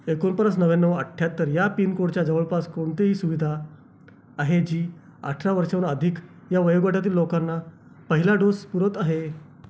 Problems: constant background noise